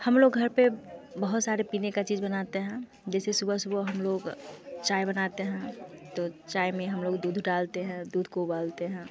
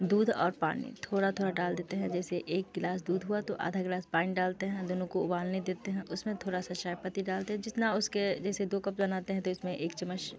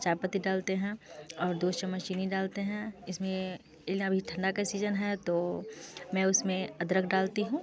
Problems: constant background noise